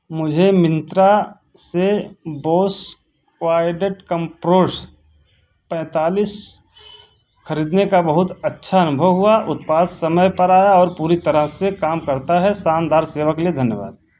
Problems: constant background noise